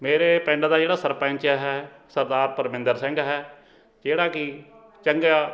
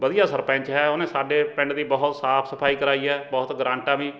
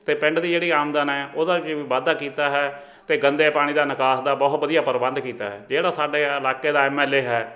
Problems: background sounds at intervals, background conversations at intervals